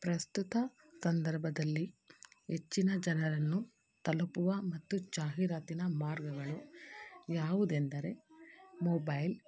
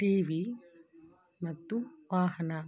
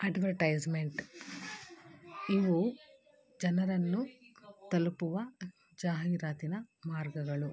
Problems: background sounds at intervals